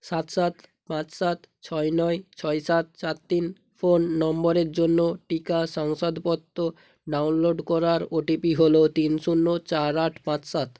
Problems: none marked